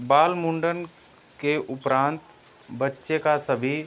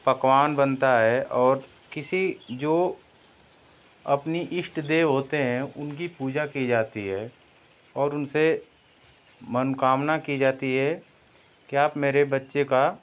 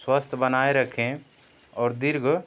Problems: none marked